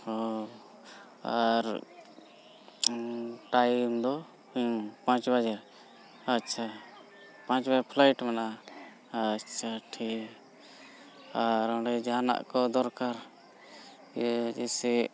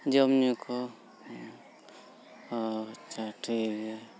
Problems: background sounds at intervals